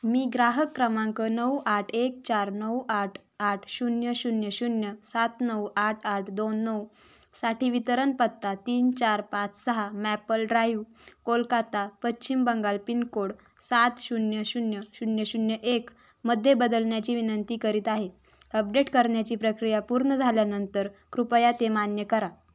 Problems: none marked